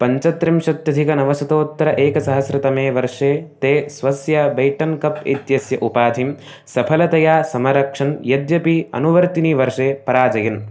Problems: background sounds at intervals